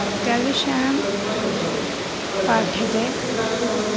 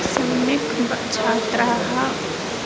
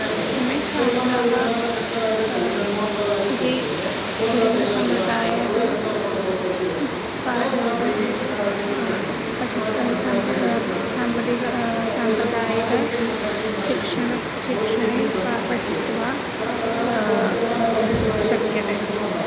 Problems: constant background noise